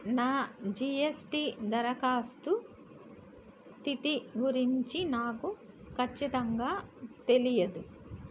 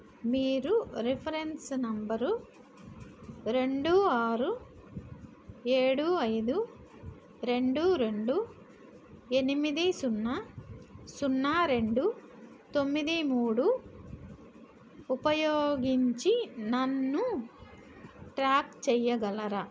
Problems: none marked